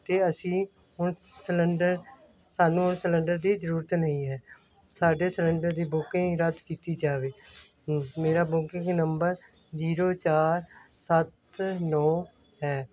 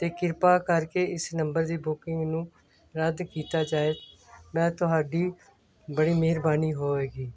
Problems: none marked